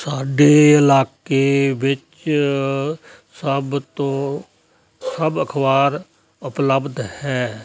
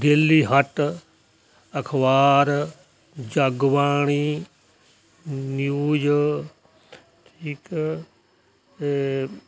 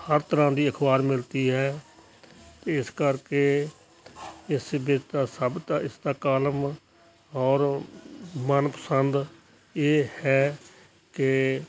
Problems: constant background noise